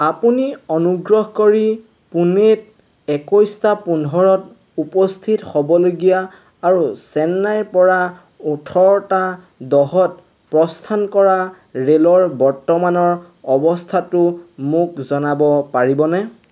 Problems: constant background noise